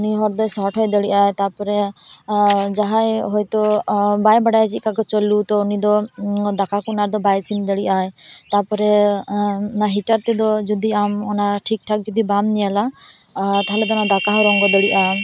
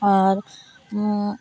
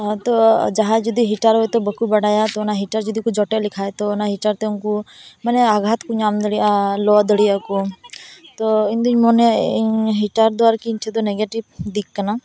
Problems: background conversations at intervals